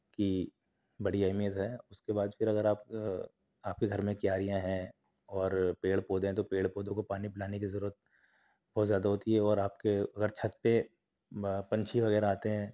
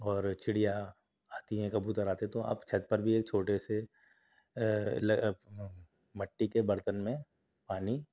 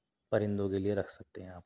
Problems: none marked